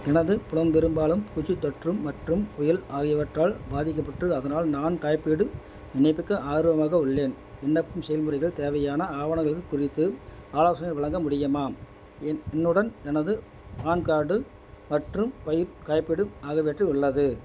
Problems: background sounds at intervals